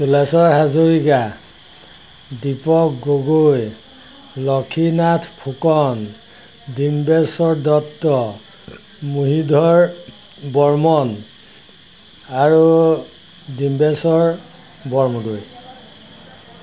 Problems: none marked